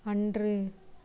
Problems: none marked